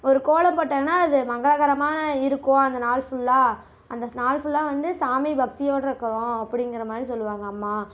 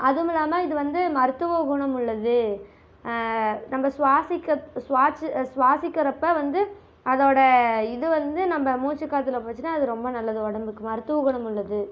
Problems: constant background noise